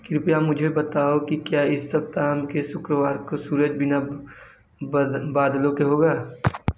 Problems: none marked